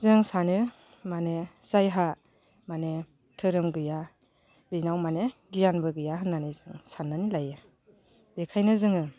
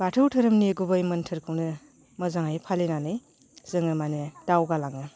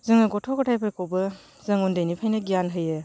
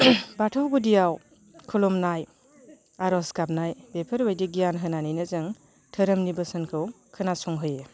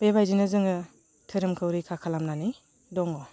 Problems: constant background noise